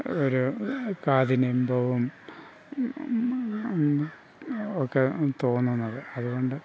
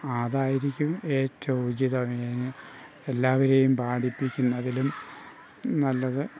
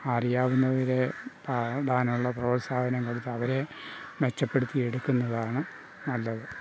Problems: background sounds at intervals, low volume